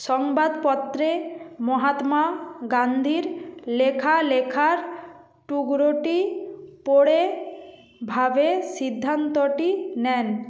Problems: none marked